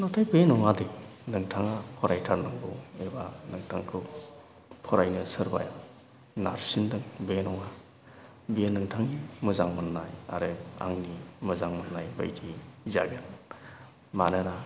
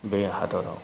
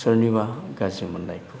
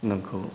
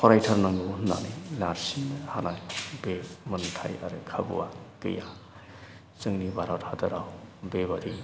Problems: low volume